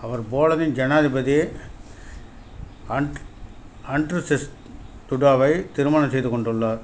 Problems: none marked